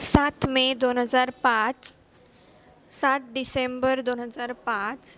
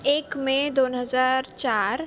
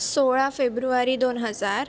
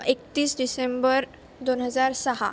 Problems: constant background noise, continuous background conversations